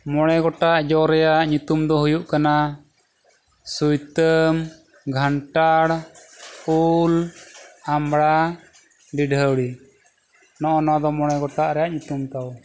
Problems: none marked